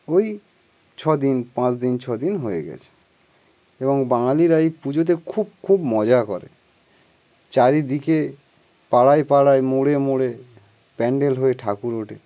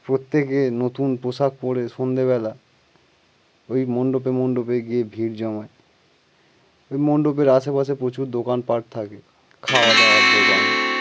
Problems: background sounds at intervals